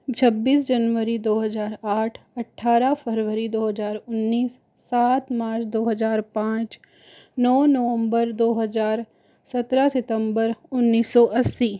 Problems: constant background noise